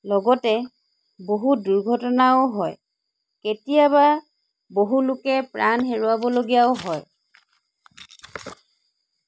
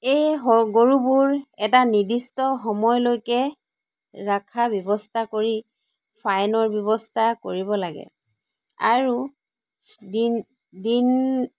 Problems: none marked